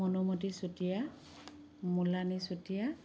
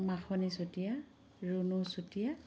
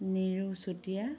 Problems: constant background noise, background conversations at intervals